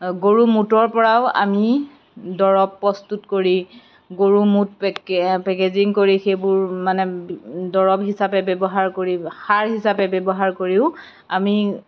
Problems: none marked